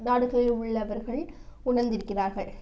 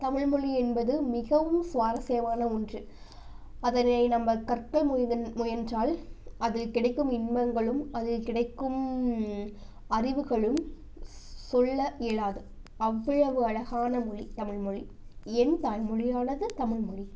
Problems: none marked